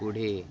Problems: continuous background conversations